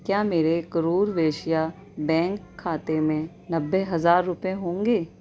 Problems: background conversations at intervals